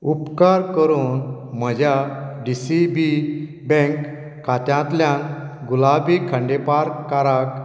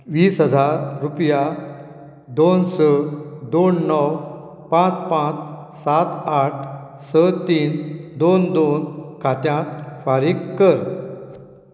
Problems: none marked